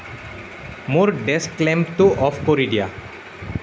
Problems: none marked